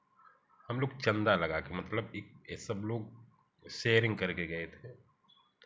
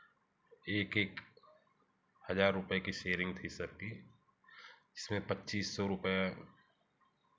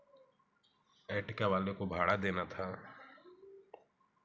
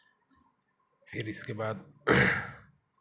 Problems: background sounds at intervals, background conversations at intervals